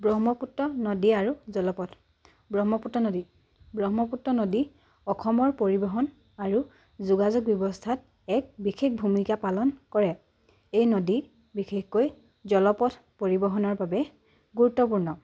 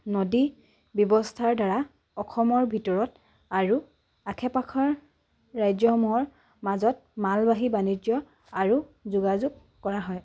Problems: none marked